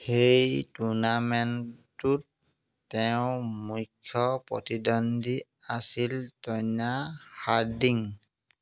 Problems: constant background noise